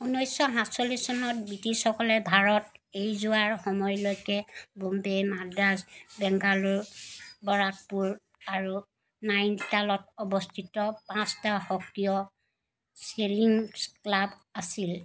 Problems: constant background noise